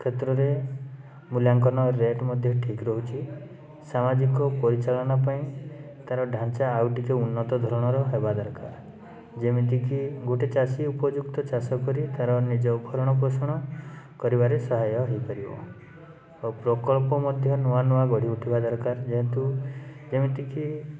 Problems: constant background noise, background conversations at intervals